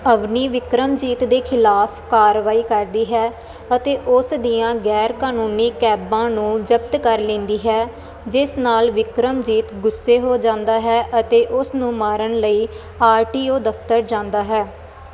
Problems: constant background noise